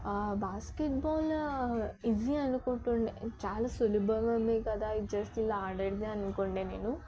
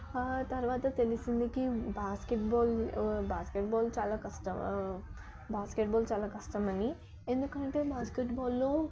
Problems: background sounds at intervals, background conversations at intervals, low volume